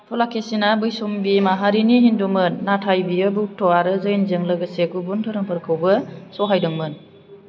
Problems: none marked